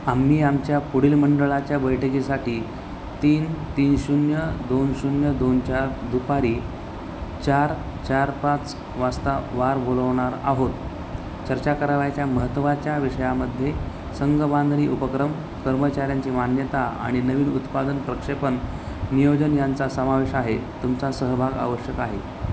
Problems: constant background noise